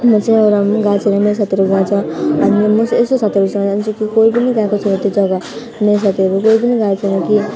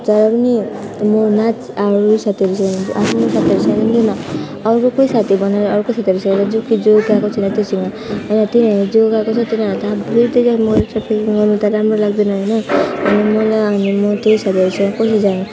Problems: constant background noise, background conversations at intervals, low volume